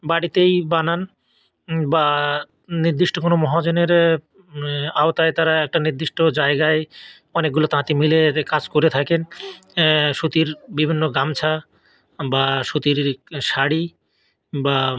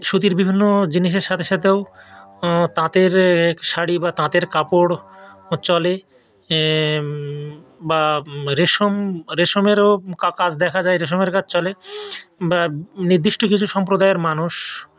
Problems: none marked